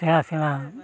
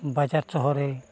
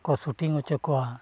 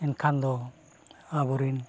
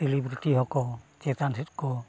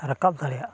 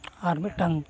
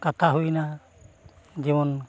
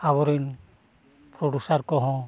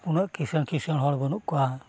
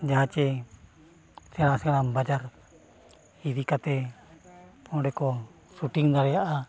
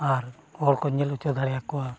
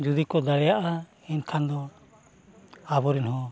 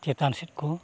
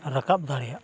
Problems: none marked